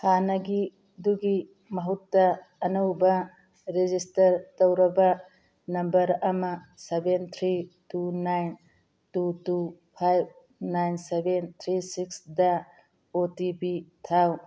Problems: none marked